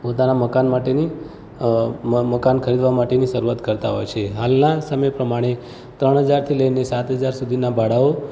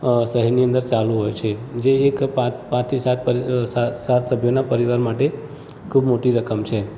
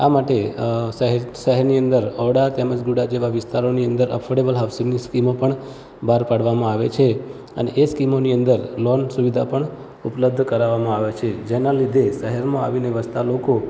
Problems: constant background noise, background conversations at intervals